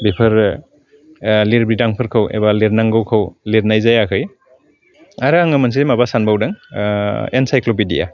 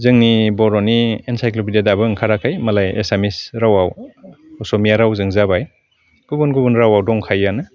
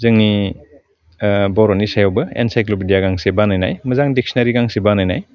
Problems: constant background noise